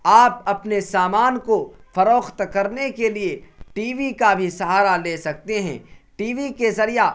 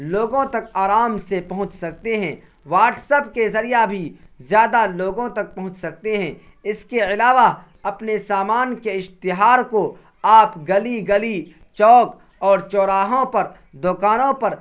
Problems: constant background noise